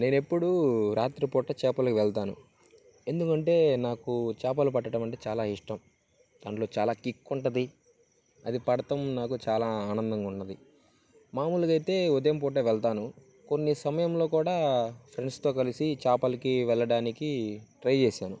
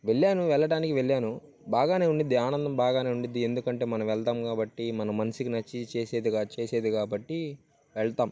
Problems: none marked